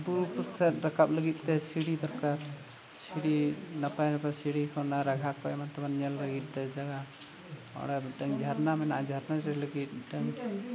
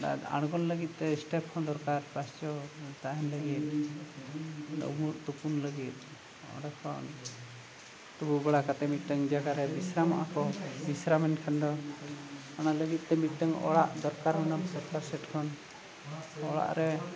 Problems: constant background noise, background conversations at intervals